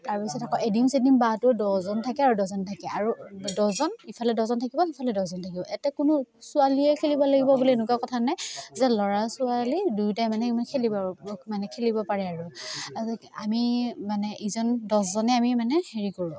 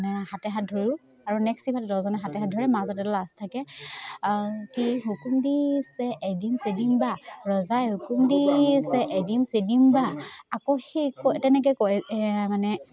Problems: constant background noise